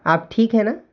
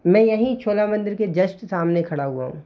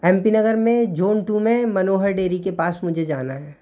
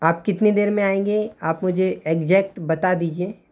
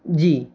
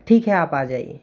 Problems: constant background noise